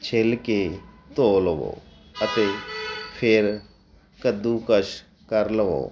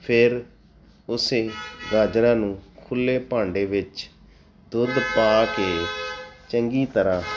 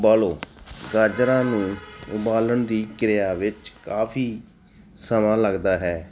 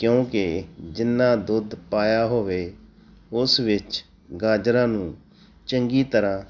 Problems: none marked